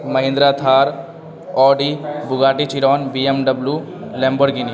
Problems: constant background noise